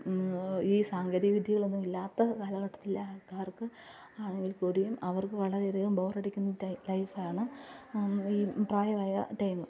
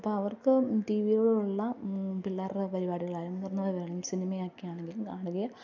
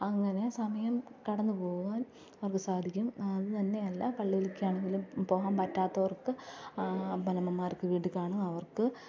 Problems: low volume